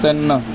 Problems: none marked